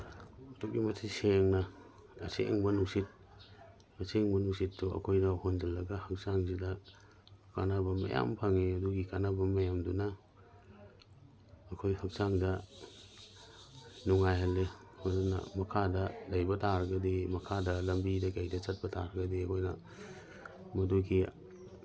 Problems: none marked